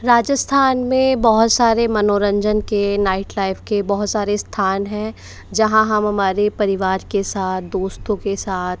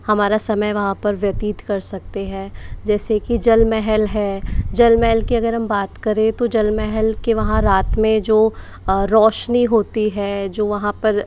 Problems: background sounds at intervals